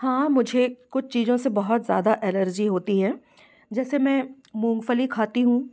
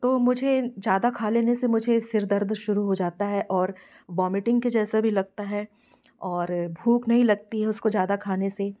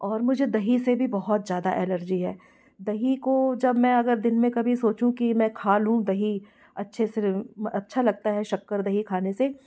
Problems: background sounds at intervals, background conversations at intervals